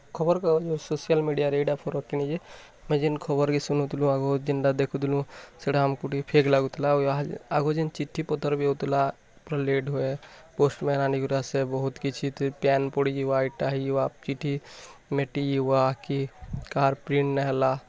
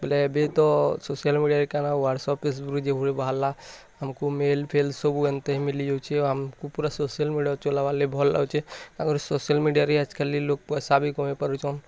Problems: constant background noise, continuous background conversations